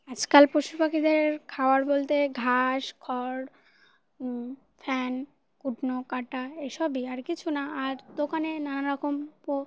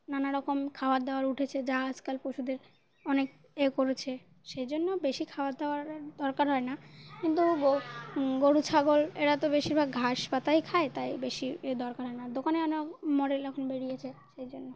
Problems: none marked